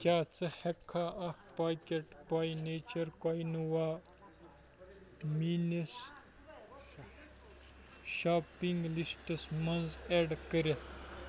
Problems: background sounds at intervals, background conversations at intervals